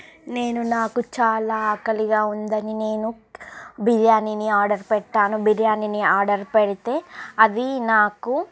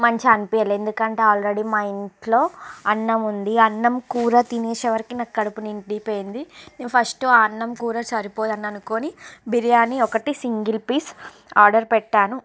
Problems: none marked